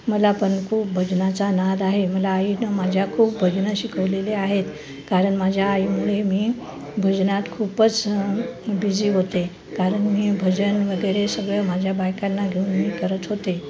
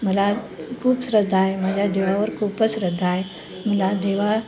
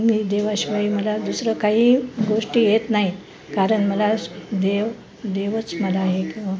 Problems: none marked